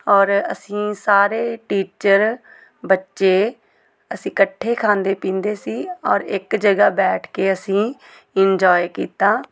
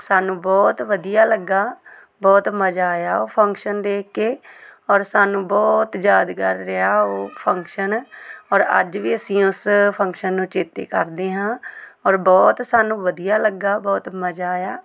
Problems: background conversations at intervals